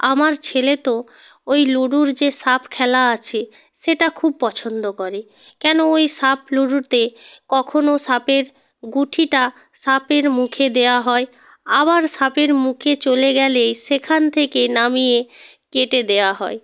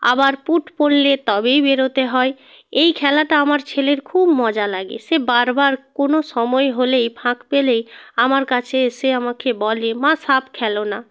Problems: constant background noise